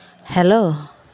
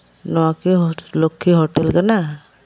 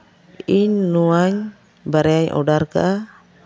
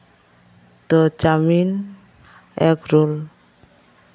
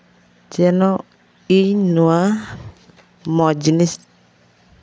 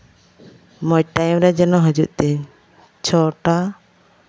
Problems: none marked